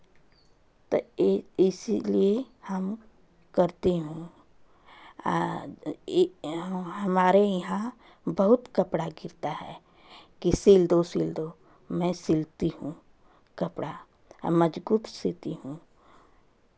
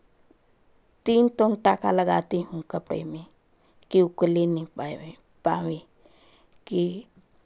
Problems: constant background noise